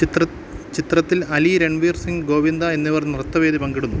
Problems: none marked